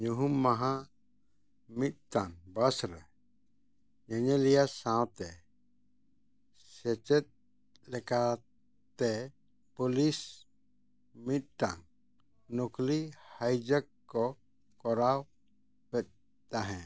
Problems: none marked